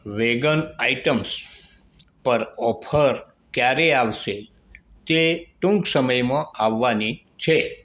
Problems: background sounds at intervals